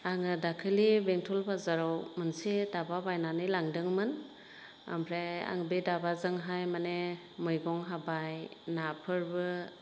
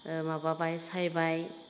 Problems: constant background noise